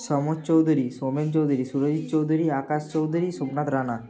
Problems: background sounds at intervals, background conversations at intervals